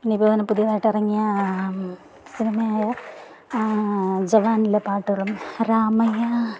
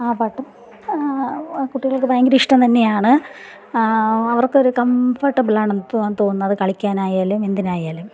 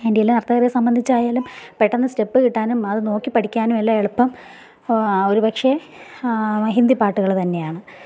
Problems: background sounds at intervals